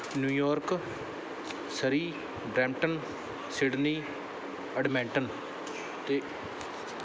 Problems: background sounds at intervals